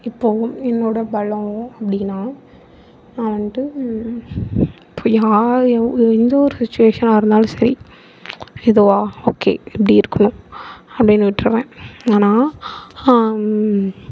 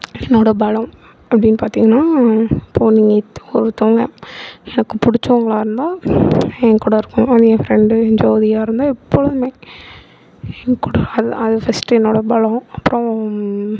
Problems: background sounds at intervals